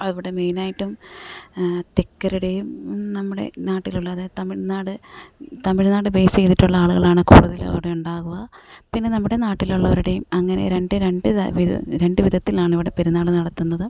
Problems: none marked